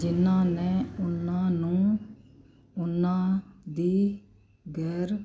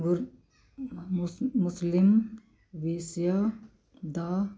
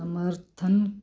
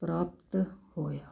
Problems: background sounds at intervals